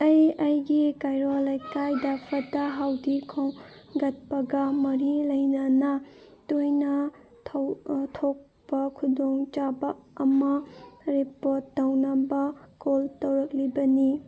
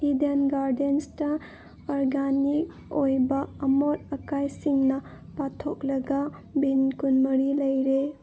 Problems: none marked